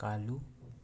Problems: none marked